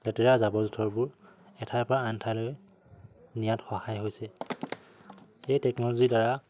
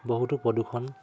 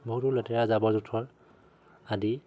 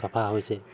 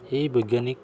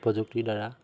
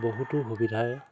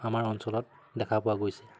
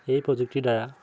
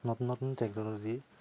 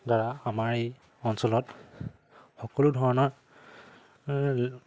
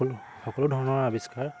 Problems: constant background noise